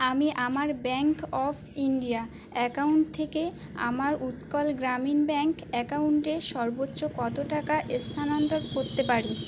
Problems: constant background noise